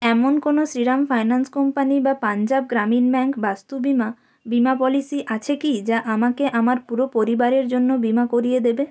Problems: none marked